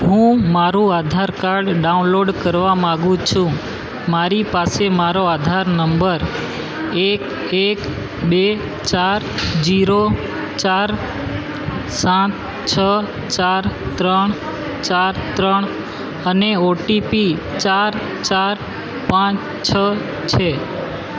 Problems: constant background noise